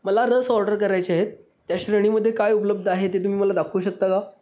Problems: none marked